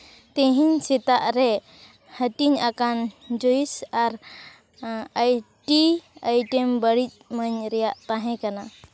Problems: constant background noise